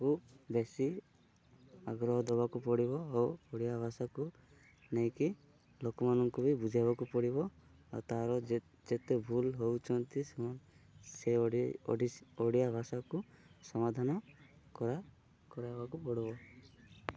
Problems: none marked